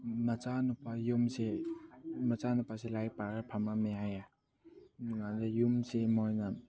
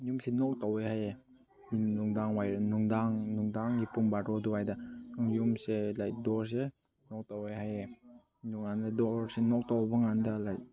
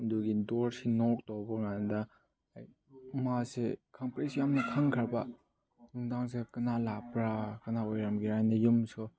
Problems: background sounds at intervals